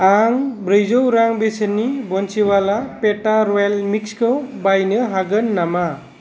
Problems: none marked